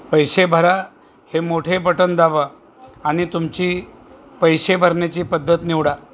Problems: none marked